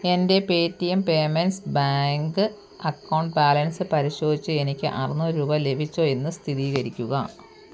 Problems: none marked